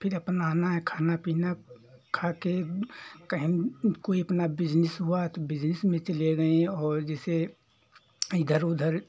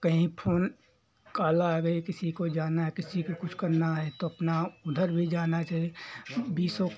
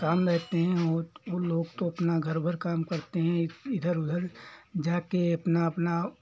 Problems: background sounds at intervals